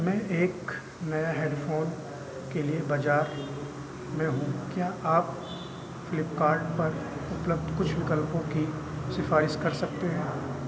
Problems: none marked